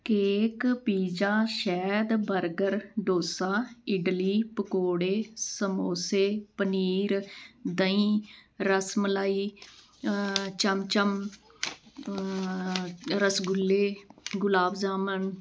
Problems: background sounds at intervals